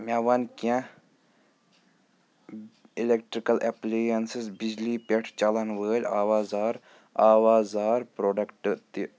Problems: background sounds at intervals, background conversations at intervals